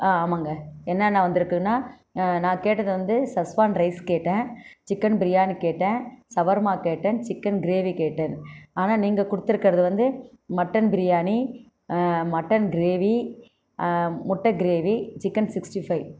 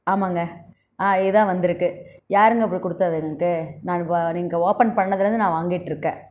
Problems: constant background noise